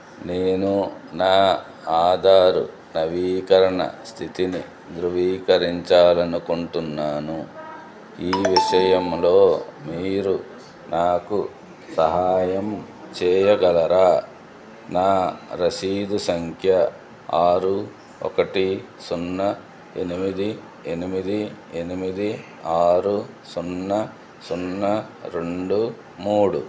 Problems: continuous background conversations